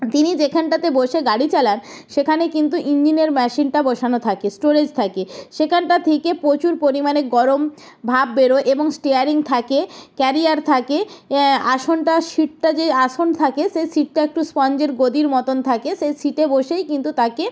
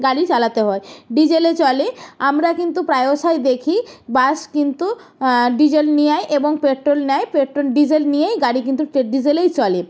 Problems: none marked